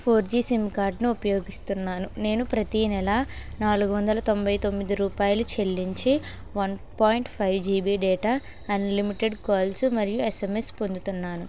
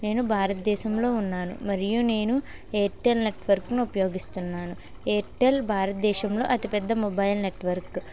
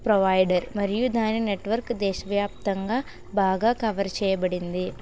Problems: constant background noise